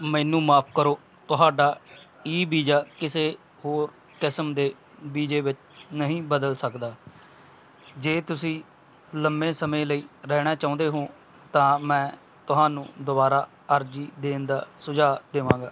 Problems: background sounds at intervals